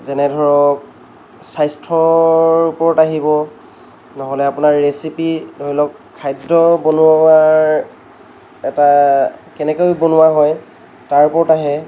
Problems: none marked